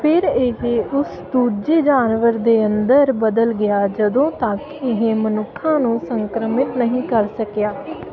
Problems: constant background noise